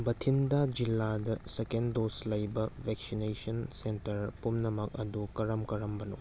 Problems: background sounds at intervals